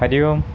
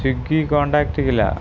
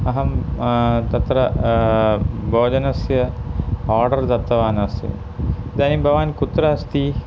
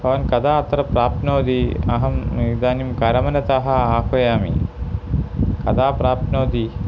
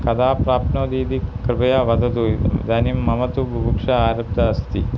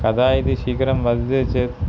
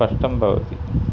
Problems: constant background noise